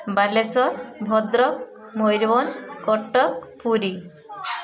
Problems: constant background noise, continuous background conversations